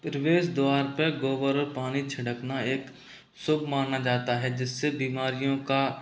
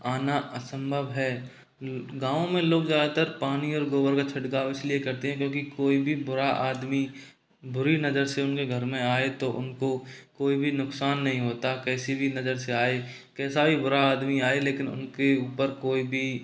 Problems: none marked